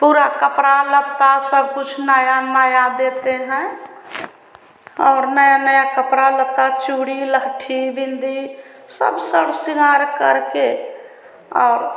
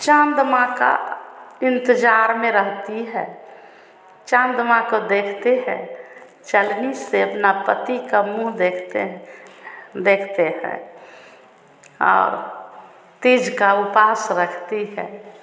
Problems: none marked